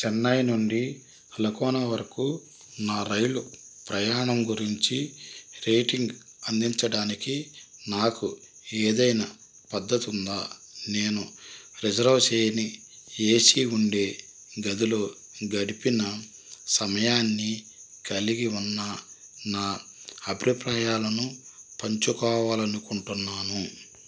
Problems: constant background noise